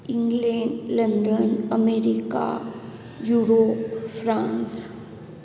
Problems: constant background noise